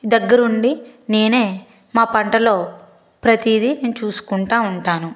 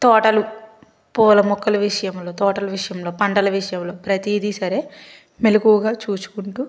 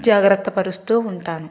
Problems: constant background noise